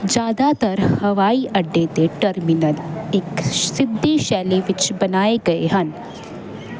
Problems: constant background noise